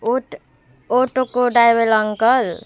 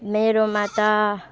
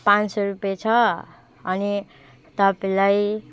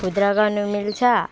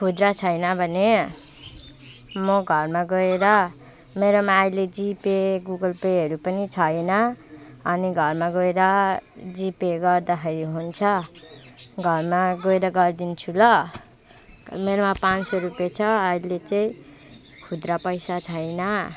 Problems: constant background noise